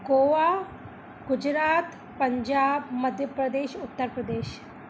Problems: constant background noise, echo